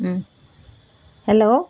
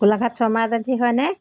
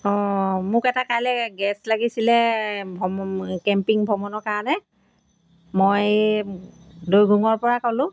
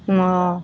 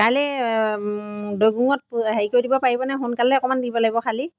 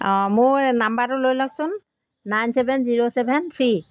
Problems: background sounds at intervals